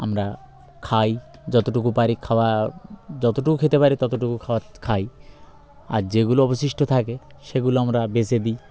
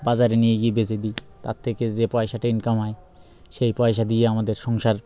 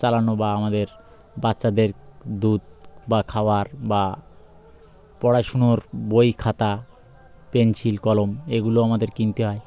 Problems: background sounds at intervals